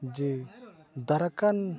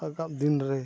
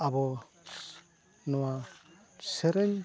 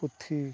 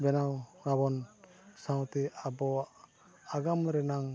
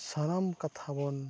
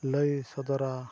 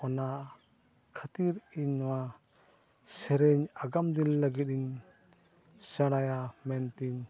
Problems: background sounds at intervals